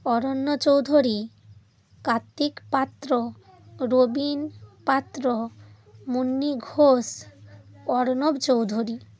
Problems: constant background noise